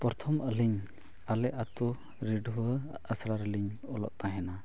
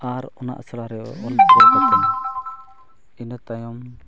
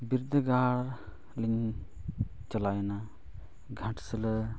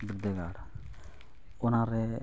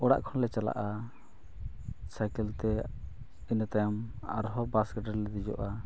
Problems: none marked